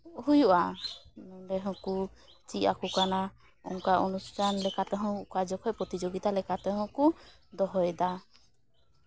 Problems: background sounds at intervals